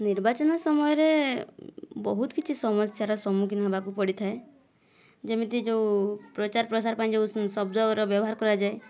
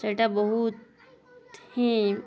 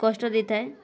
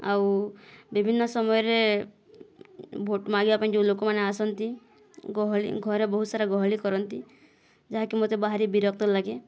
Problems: none marked